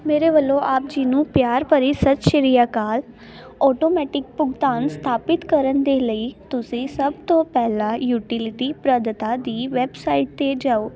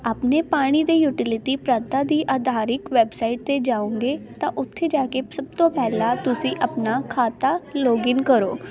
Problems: constant background noise, continuous background conversations